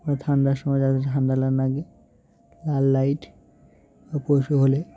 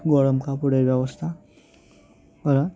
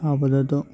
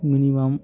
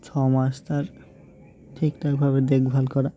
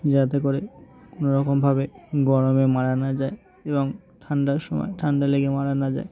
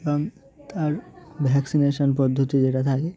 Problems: none marked